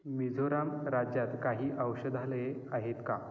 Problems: none marked